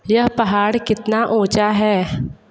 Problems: background sounds at intervals